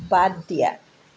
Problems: constant background noise